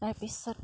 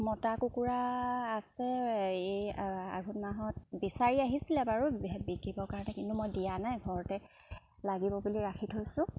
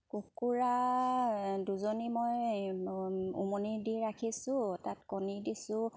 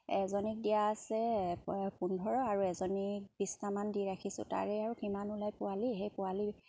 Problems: none marked